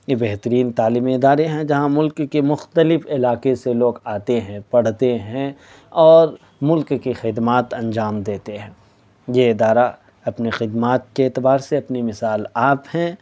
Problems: none marked